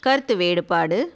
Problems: none marked